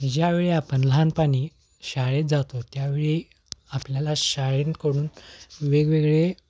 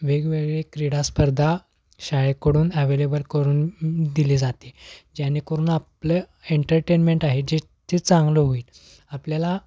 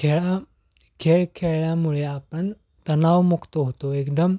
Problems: background sounds at intervals